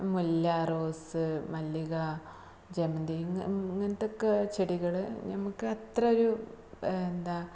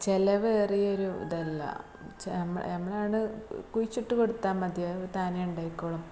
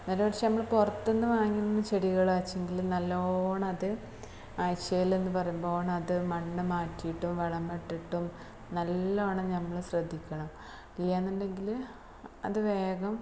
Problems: low volume